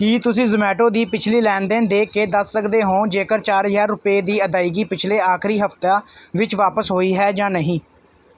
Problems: background sounds at intervals